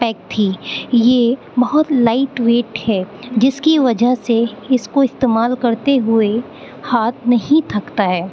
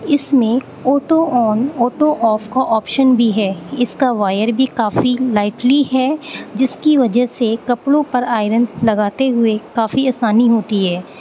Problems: constant background noise